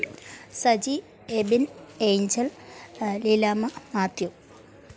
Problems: low volume